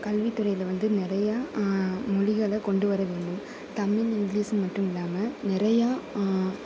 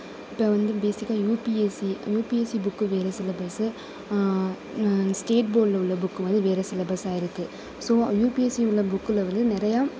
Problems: constant background noise